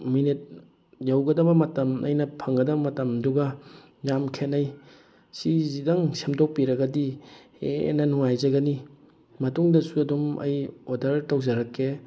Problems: constant background noise